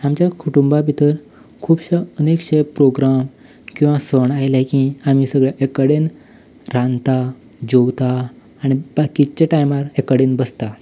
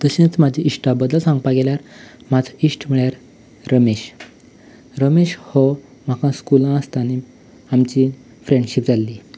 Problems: background sounds at intervals